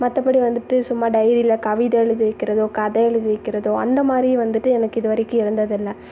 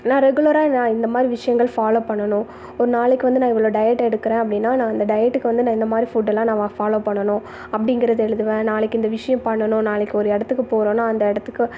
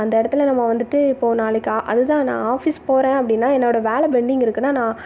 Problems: background sounds at intervals